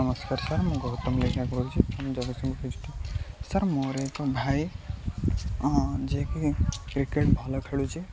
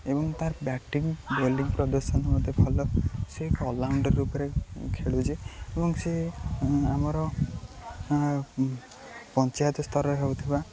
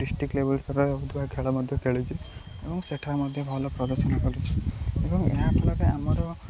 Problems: constant background noise, continuous background conversations